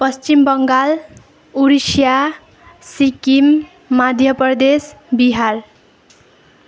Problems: none marked